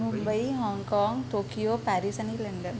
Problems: background conversations at intervals